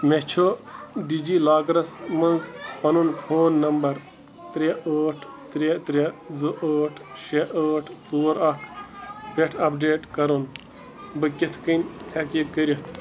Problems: constant background noise